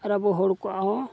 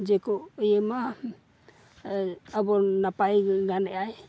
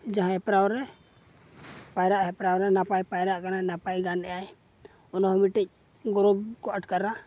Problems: none marked